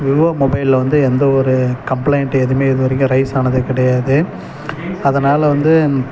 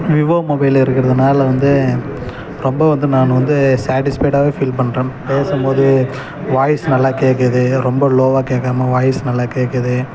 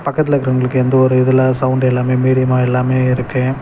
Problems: background sounds at intervals